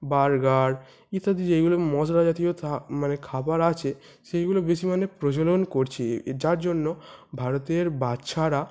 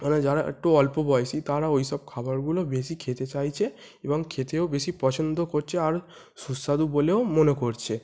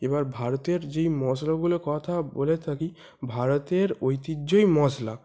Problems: constant background noise